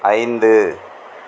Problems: constant background noise